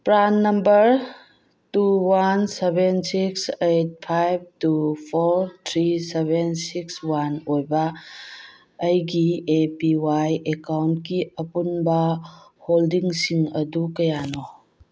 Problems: none marked